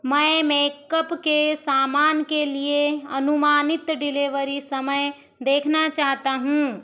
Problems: none marked